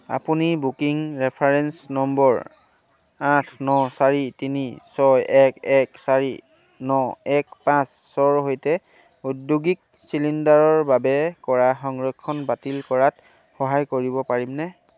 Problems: none marked